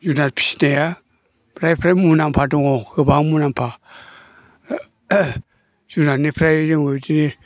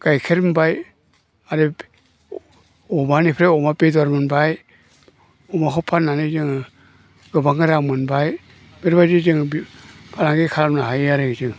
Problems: low volume